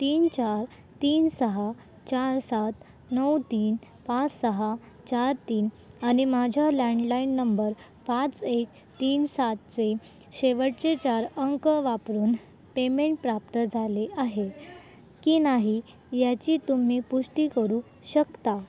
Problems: none marked